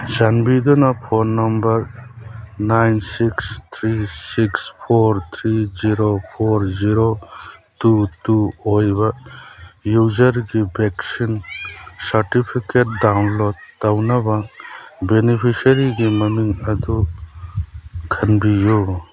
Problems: background sounds at intervals, background conversations at intervals